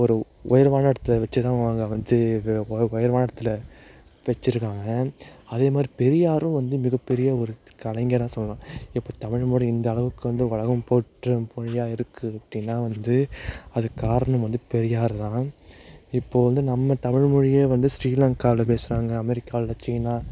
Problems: constant background noise